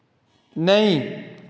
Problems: echo